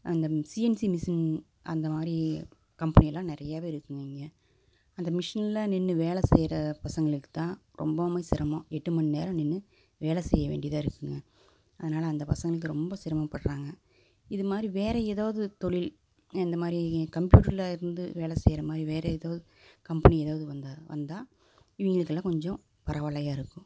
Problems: none marked